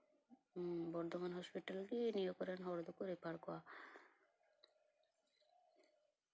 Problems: none marked